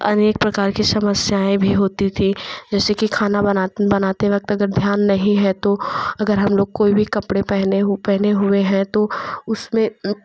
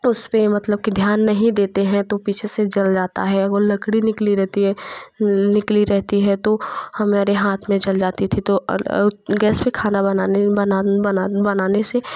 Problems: constant background noise